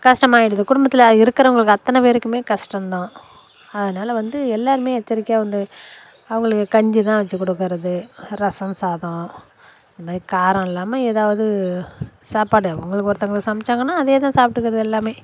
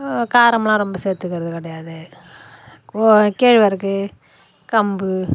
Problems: constant background noise